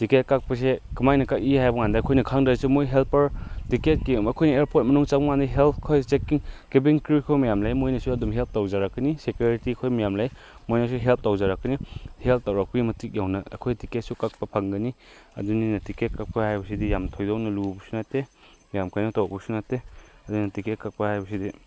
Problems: background sounds at intervals